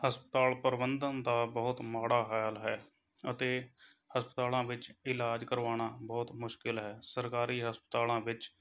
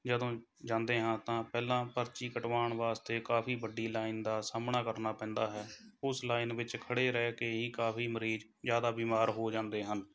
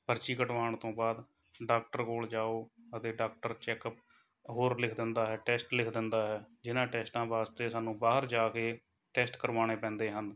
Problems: background sounds at intervals, background conversations at intervals